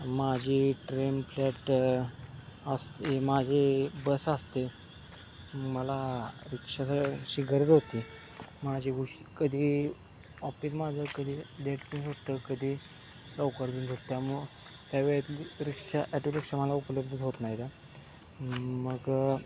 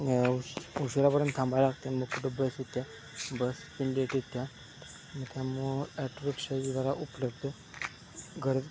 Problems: constant background noise